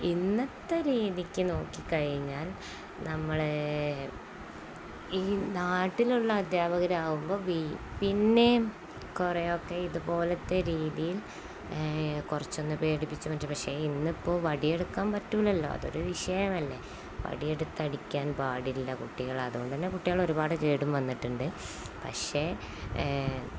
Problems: none marked